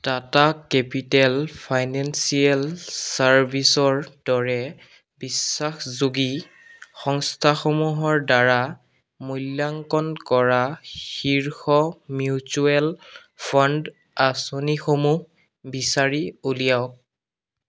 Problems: background sounds at intervals